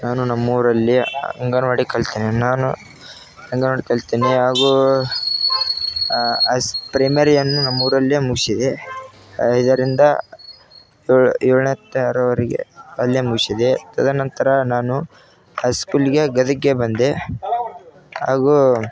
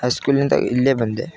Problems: none marked